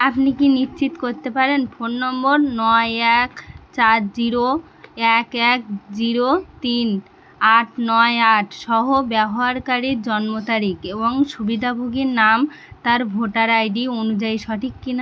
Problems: constant background noise